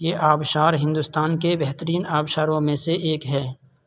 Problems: constant background noise